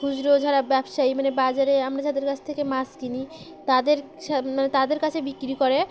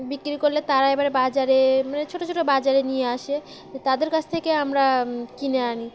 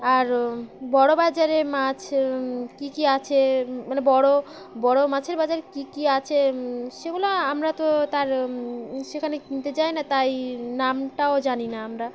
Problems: none marked